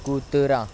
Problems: constant background noise, background conversations at intervals